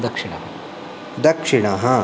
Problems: constant background noise